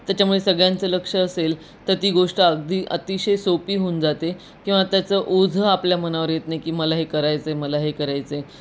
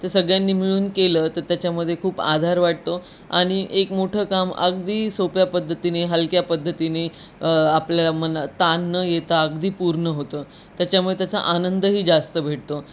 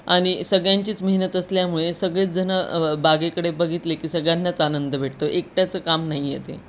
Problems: constant background noise